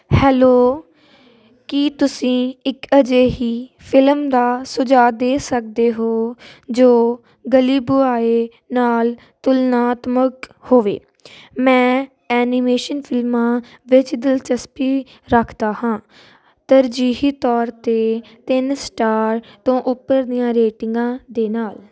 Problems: constant background noise